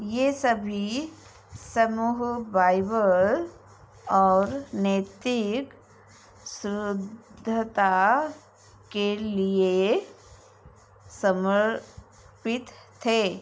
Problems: constant background noise